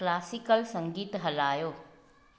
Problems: constant background noise, echo